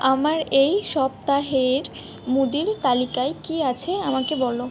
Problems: background sounds at intervals